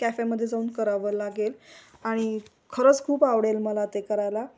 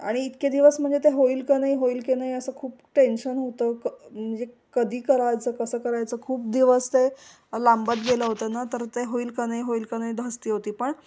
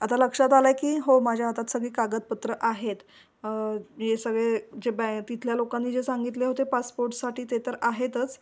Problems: background sounds at intervals